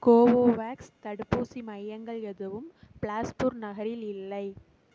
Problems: background sounds at intervals, low volume